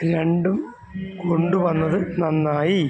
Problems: constant background noise